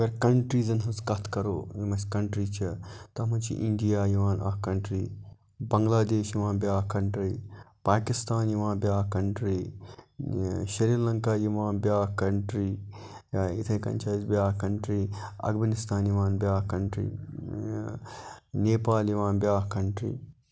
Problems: background sounds at intervals